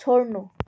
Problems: none marked